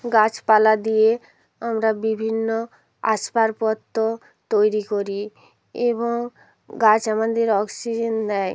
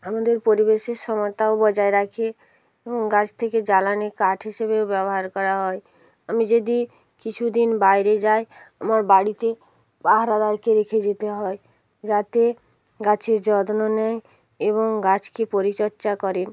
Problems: none marked